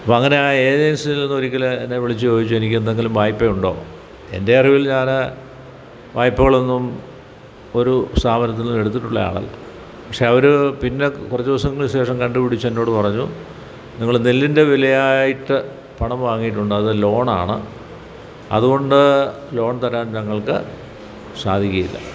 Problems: background sounds at intervals